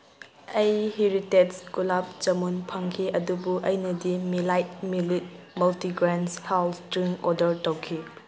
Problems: background sounds at intervals